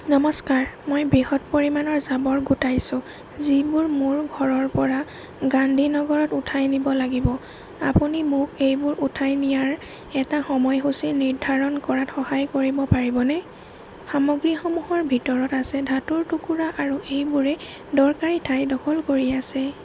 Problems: constant background noise